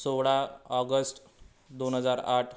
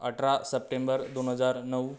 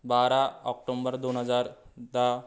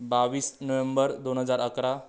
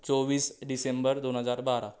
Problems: none marked